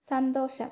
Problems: low volume